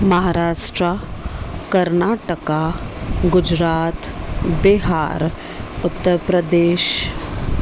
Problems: none marked